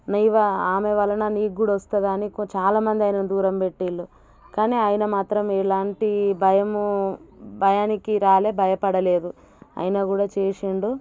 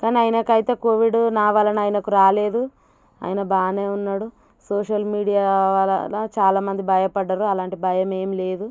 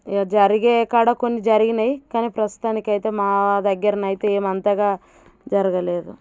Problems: none marked